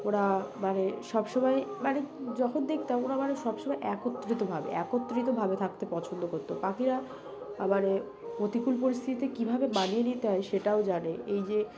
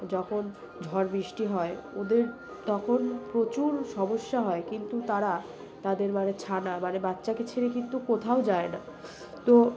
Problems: background sounds at intervals, background conversations at intervals